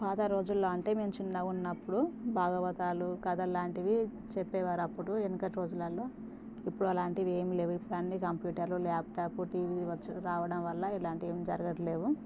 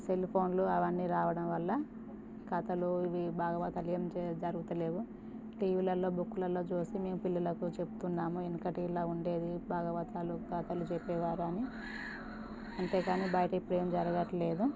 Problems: constant background noise, low volume